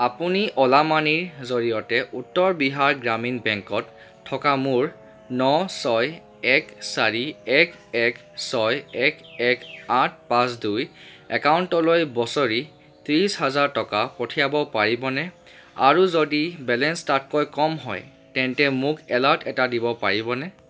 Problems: none marked